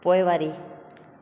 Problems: constant background noise, echo